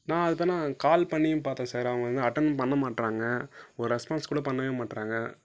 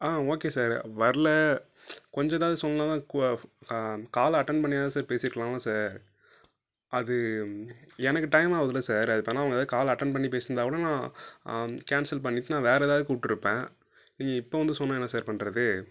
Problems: none marked